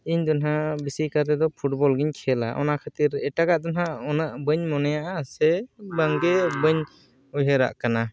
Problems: background sounds at intervals